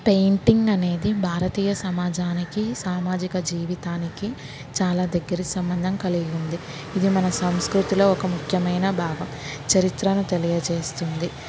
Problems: constant background noise